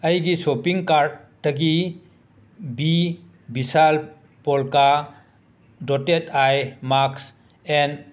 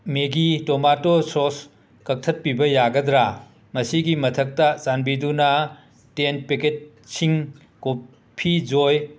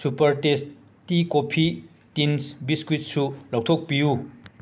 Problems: none marked